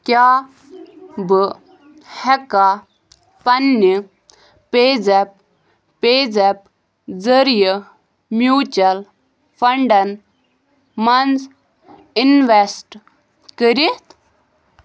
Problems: none marked